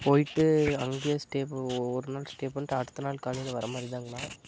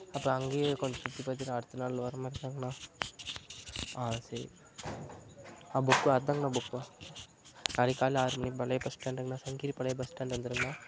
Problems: constant background noise